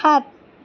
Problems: none marked